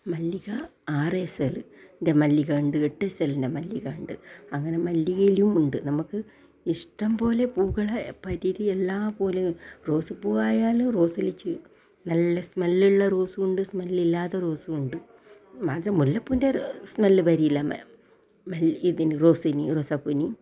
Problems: low volume